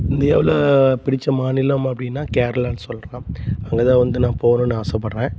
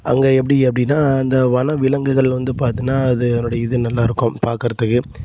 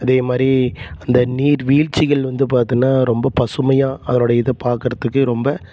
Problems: constant background noise